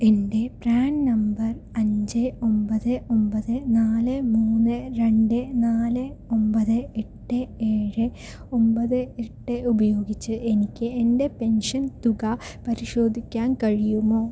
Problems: low volume